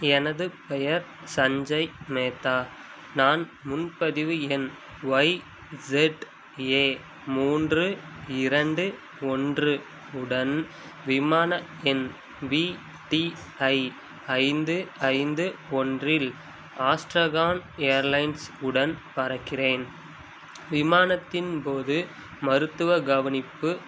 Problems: background sounds at intervals